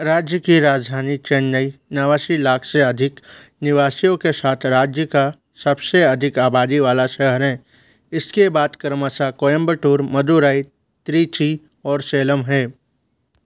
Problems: none marked